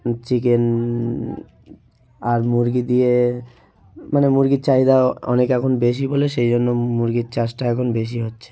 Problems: background sounds at intervals, continuous background conversations